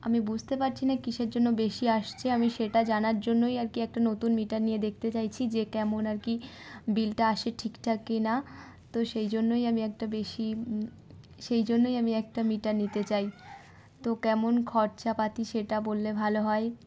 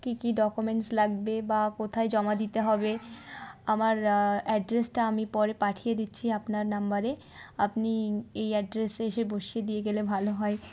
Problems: background sounds at intervals